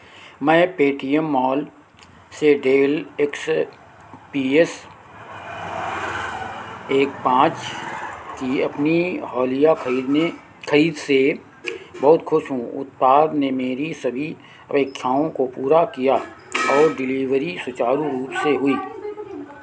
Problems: constant background noise